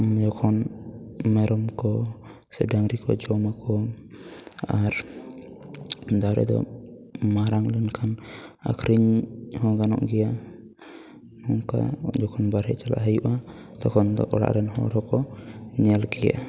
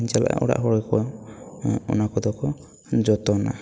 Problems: background conversations at intervals